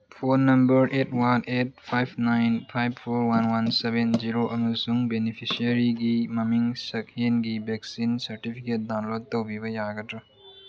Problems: low volume